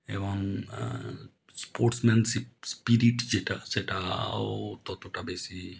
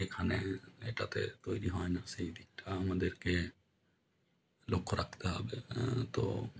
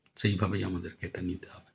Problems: none marked